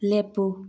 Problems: low volume